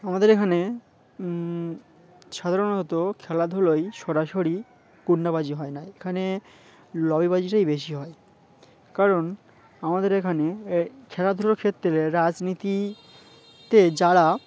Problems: constant background noise, background conversations at intervals